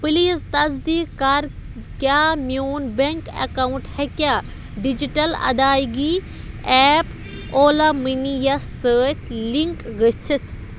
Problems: constant background noise